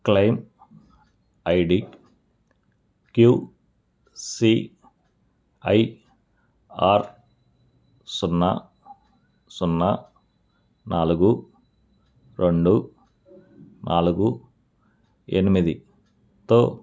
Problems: none marked